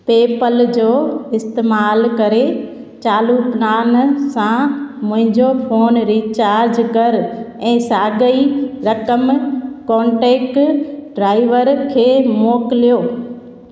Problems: constant background noise, echo